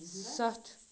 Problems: none marked